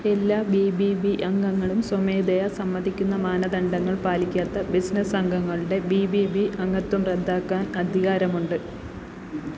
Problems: none marked